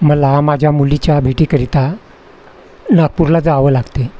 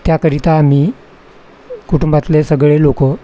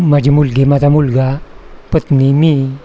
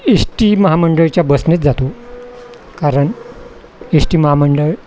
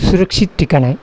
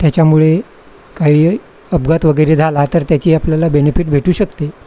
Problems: constant background noise